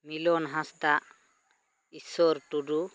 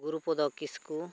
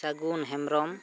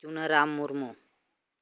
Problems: constant background noise